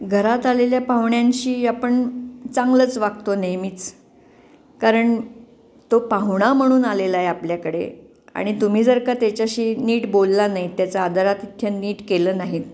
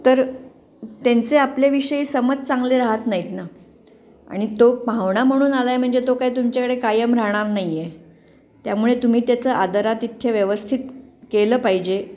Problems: constant background noise